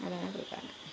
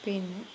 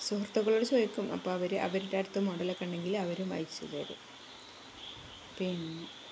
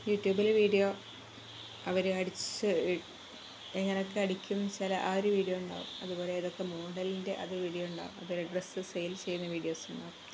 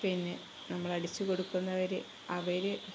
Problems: constant background noise, low volume